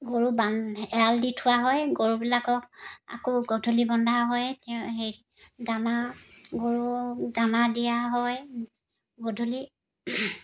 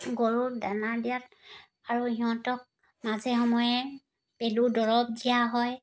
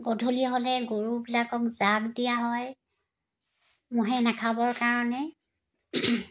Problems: none marked